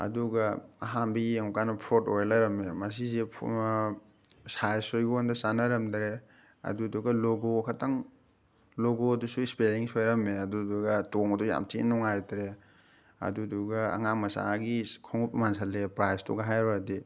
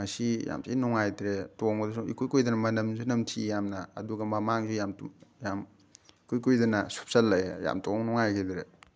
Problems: none marked